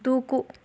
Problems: none marked